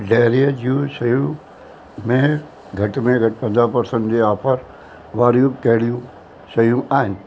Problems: constant background noise